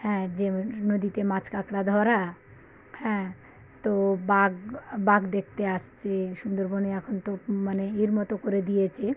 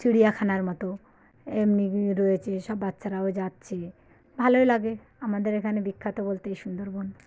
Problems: none marked